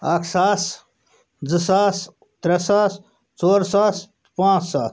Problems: background sounds at intervals